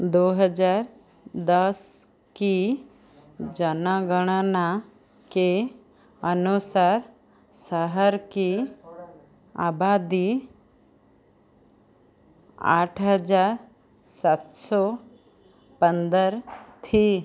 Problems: none marked